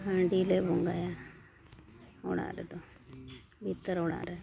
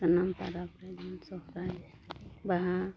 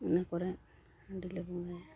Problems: background conversations at intervals, low volume